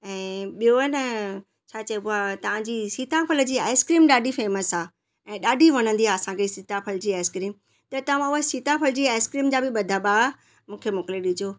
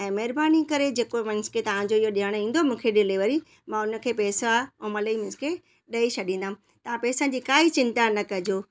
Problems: none marked